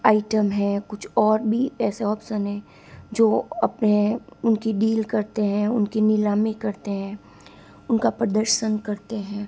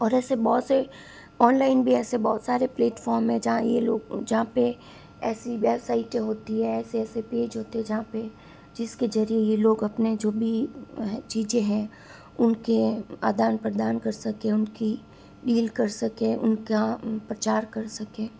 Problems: constant background noise